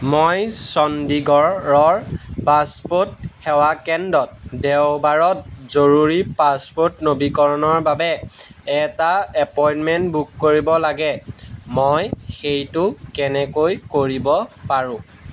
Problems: background sounds at intervals